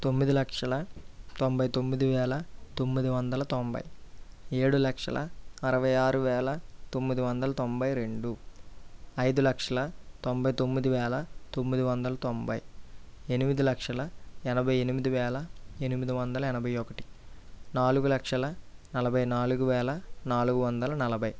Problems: low volume